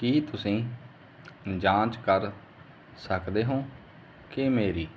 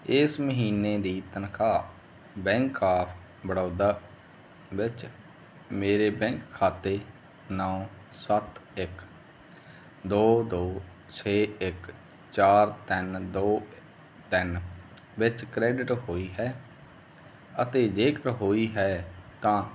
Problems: none marked